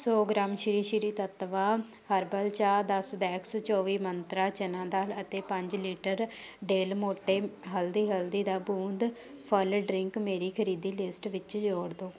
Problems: none marked